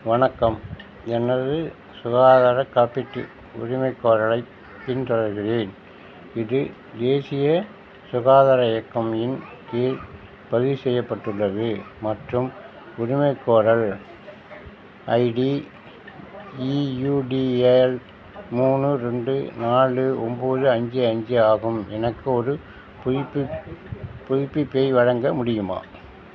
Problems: background sounds at intervals